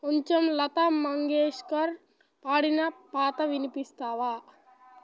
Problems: none marked